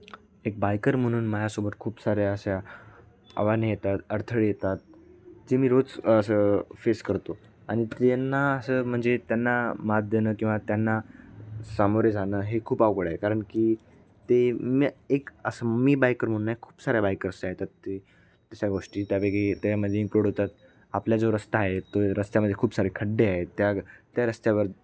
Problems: background sounds at intervals